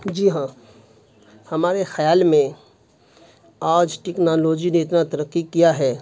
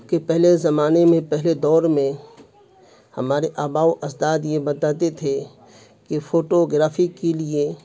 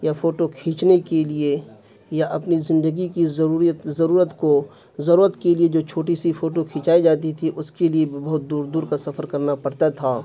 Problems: constant background noise